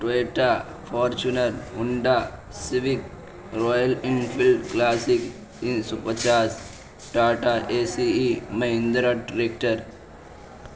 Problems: constant background noise